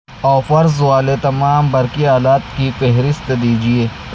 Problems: constant background noise